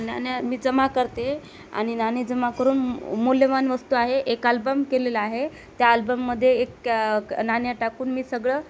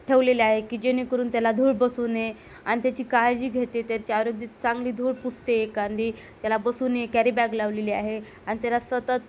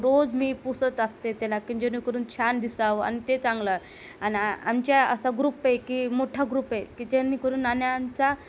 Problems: none marked